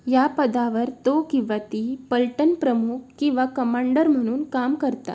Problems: background sounds at intervals